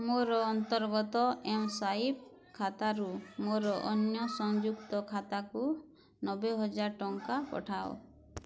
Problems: low volume